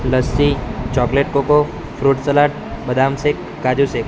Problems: constant background noise